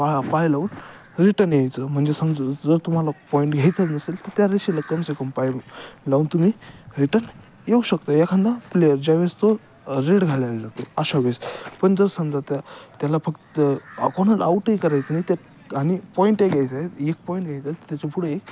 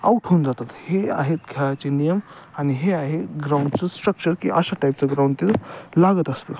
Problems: none marked